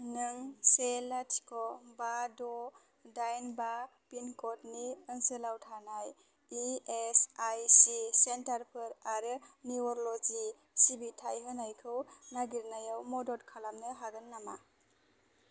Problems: low volume